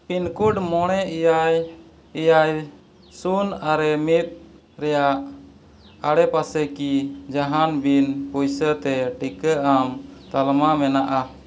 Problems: echo